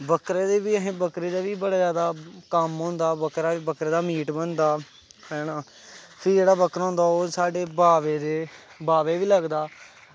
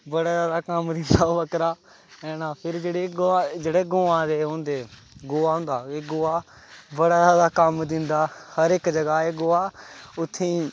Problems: none marked